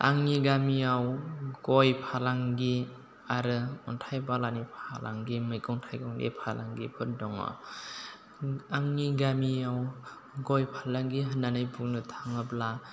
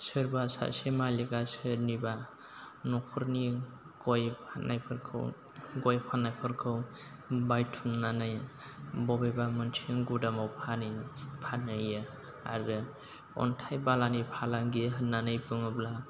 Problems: constant background noise, low volume